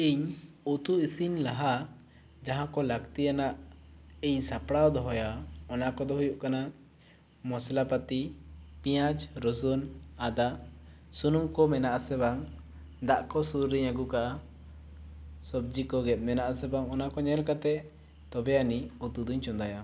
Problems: none marked